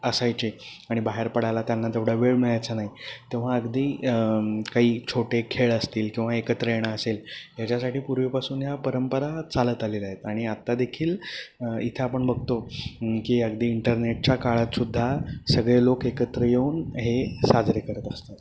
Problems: constant background noise